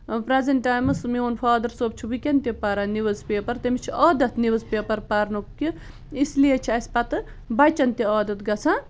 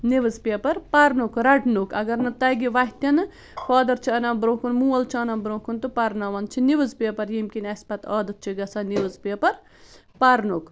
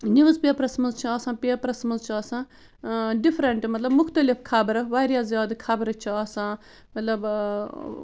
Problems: constant background noise